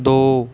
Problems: background conversations at intervals